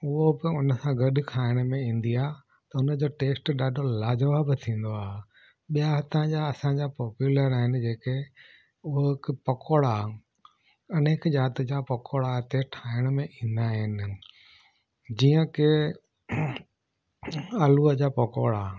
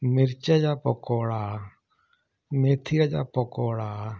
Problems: none marked